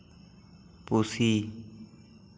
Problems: none marked